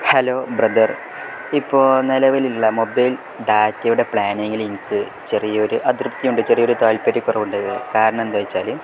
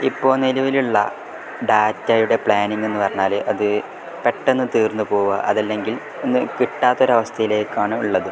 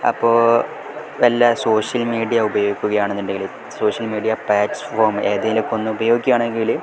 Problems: none marked